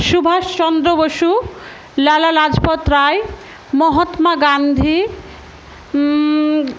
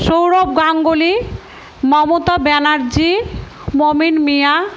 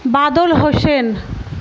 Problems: constant background noise